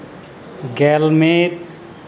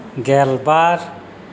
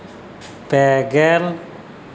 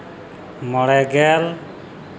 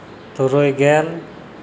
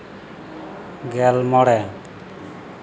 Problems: constant background noise